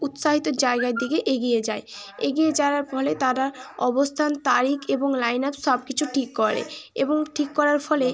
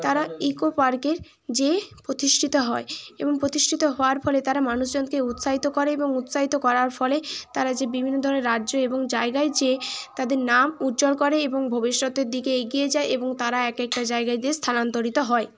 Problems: constant background noise